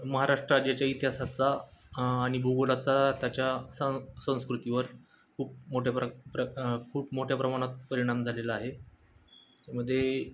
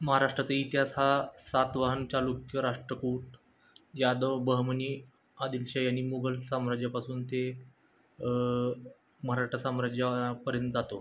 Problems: none marked